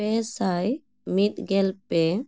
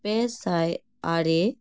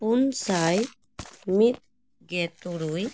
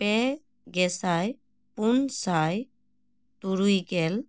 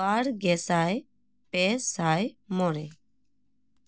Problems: none marked